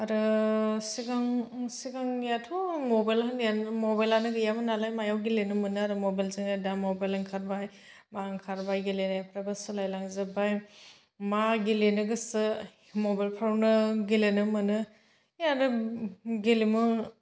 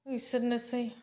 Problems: none marked